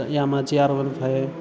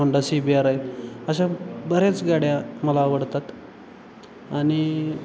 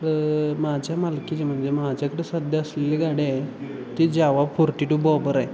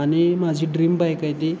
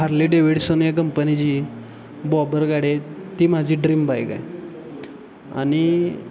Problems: constant background noise, continuous background conversations